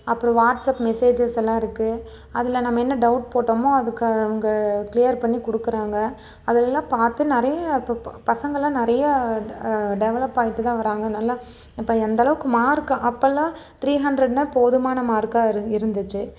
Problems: none marked